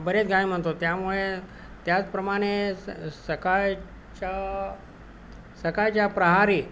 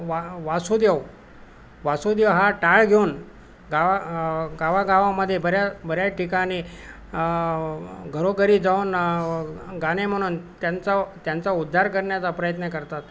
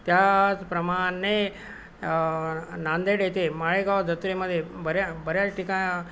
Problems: none marked